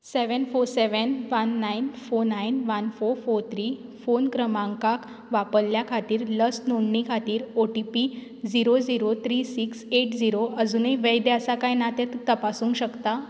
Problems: none marked